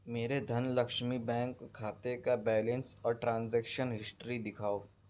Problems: none marked